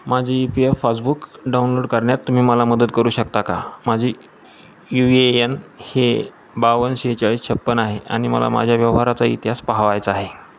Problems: none marked